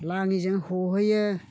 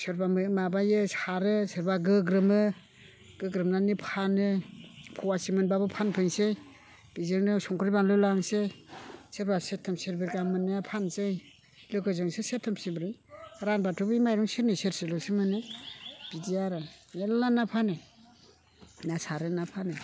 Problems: none marked